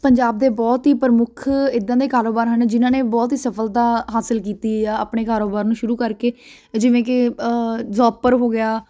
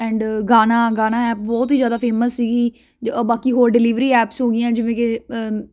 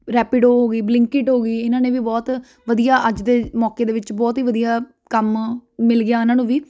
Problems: constant background noise